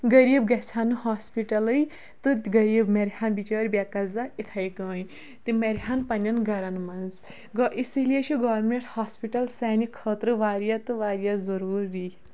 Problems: none marked